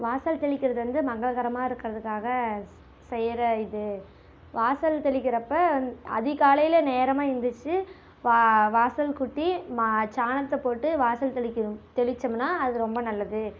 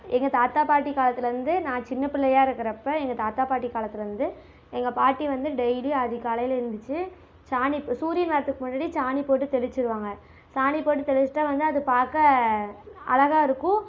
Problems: constant background noise